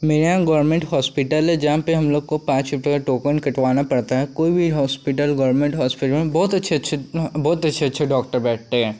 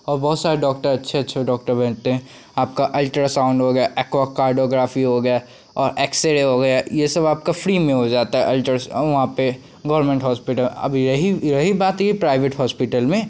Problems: constant background noise